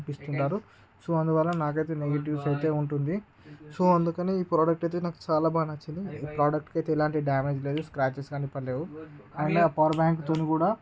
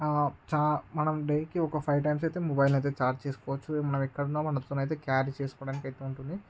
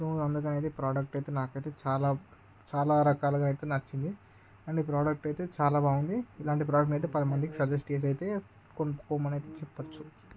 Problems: constant background noise